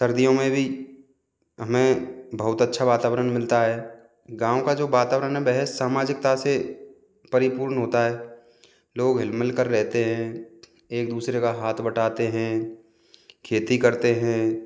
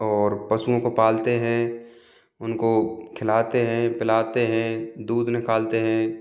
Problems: background sounds at intervals